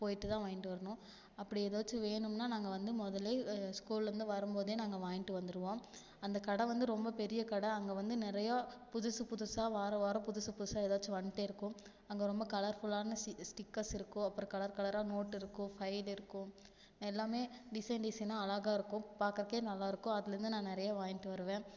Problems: low volume